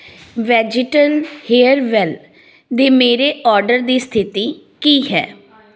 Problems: background conversations at intervals